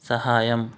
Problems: none marked